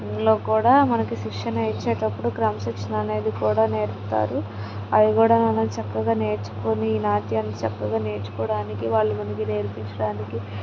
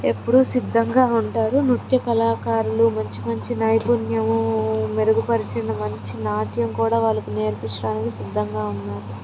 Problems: constant background noise